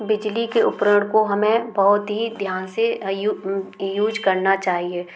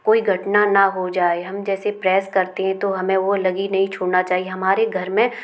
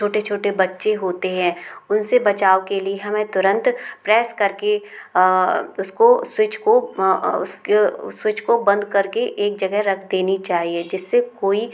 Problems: constant background noise